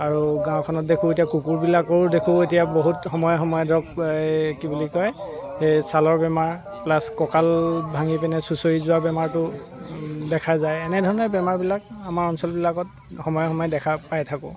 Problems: constant background noise